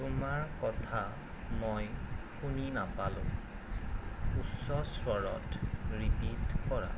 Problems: constant background noise, low volume